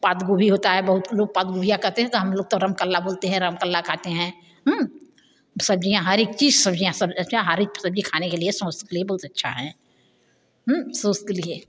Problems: background sounds at intervals